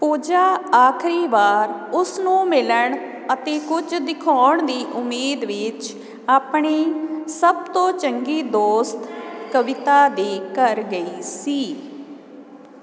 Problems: none marked